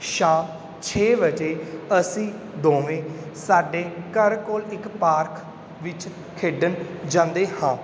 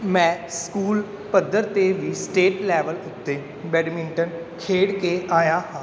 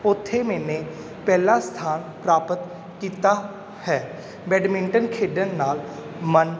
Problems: none marked